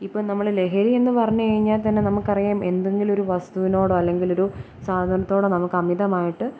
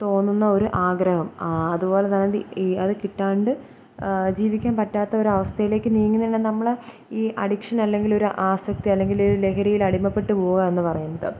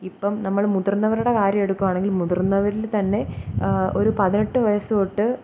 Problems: low volume